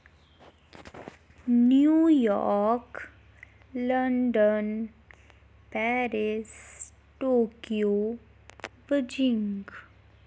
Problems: background sounds at intervals